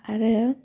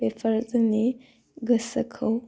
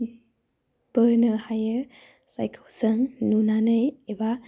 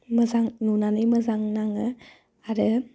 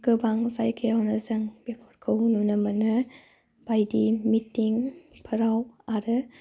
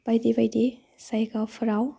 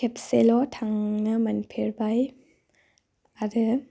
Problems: low volume